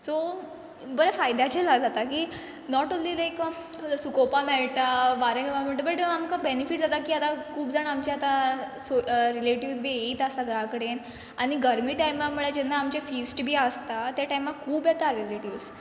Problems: background sounds at intervals